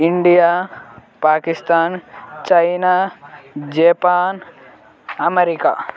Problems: continuous background conversations